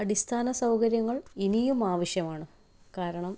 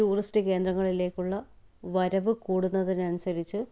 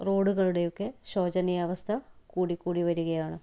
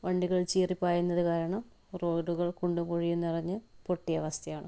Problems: none marked